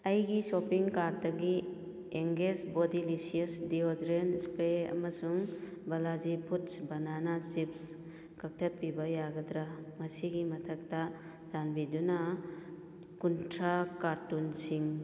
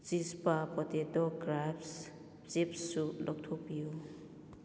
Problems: none marked